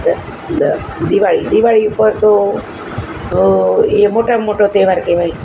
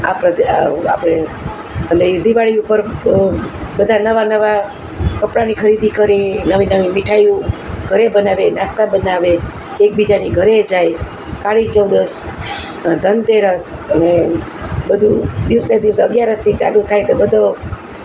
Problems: constant background noise